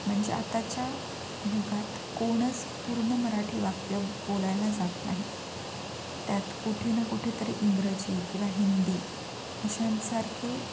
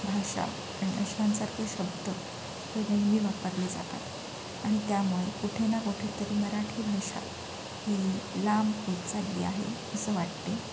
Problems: constant background noise